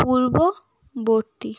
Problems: background sounds at intervals